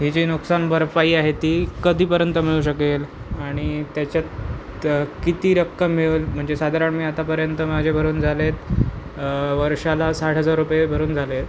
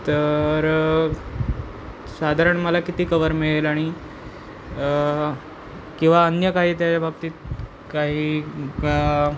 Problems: constant background noise, background conversations at intervals